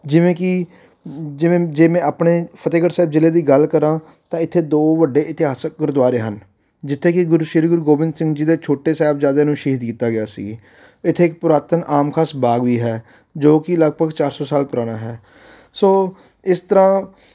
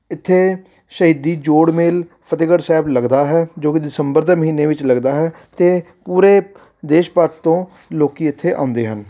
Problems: background sounds at intervals